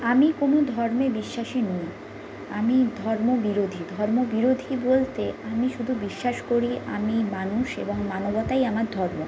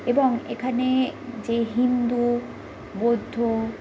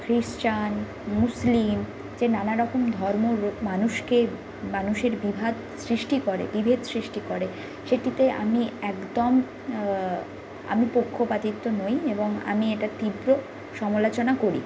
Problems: constant background noise